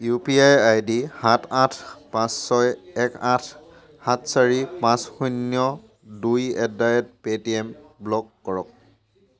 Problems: none marked